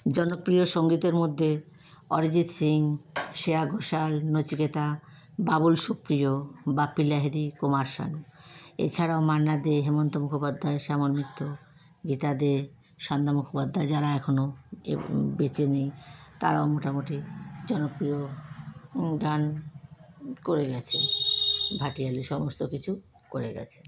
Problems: constant background noise